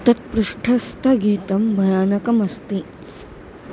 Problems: constant background noise